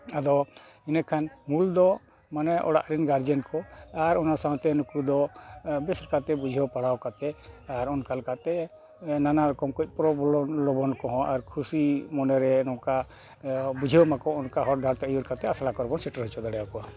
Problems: none marked